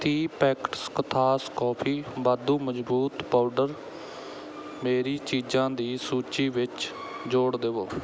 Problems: background sounds at intervals, background conversations at intervals